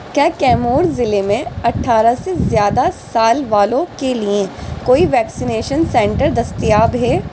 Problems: constant background noise